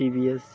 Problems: constant background noise, continuous background conversations